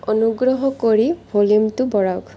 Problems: constant background noise